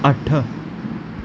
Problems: constant background noise